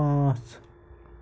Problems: none marked